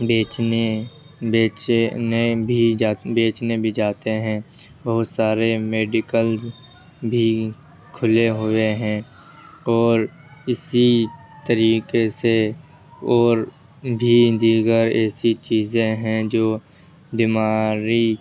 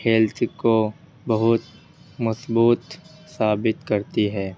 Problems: background sounds at intervals, low volume